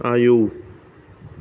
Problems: none marked